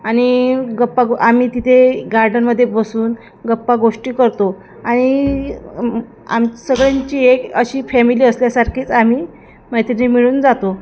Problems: none marked